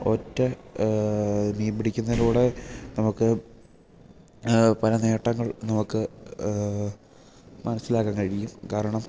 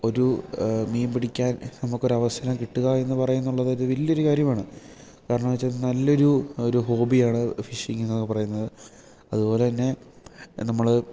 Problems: background sounds at intervals